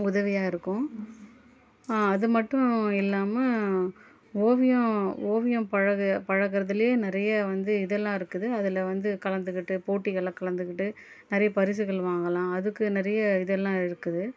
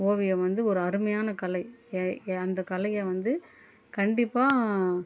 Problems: low volume